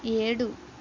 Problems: constant background noise